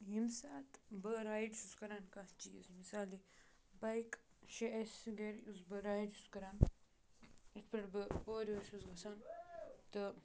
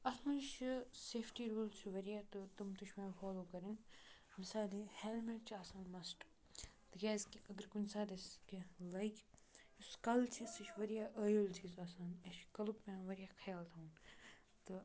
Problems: background sounds at intervals, continuous background conversations, low volume